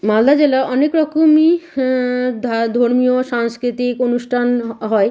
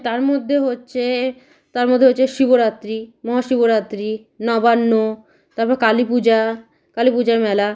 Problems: background sounds at intervals